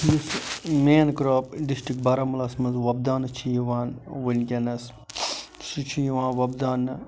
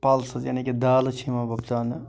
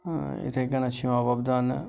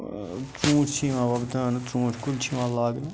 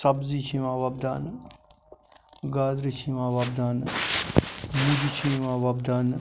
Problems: none marked